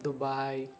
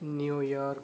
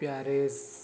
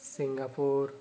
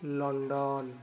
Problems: constant background noise